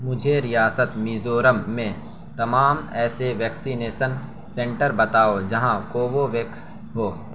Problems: constant background noise